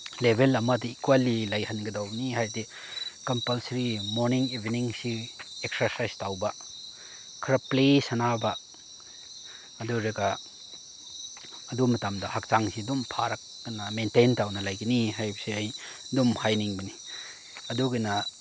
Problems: none marked